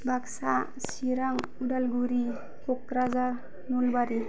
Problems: none marked